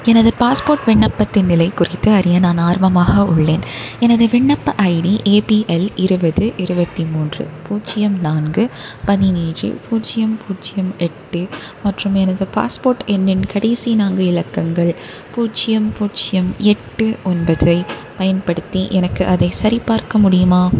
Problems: none marked